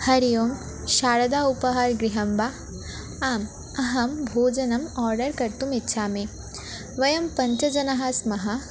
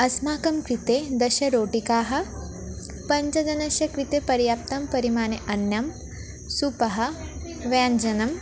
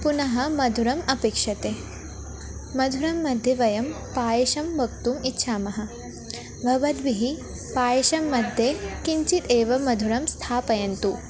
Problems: constant background noise, continuous background conversations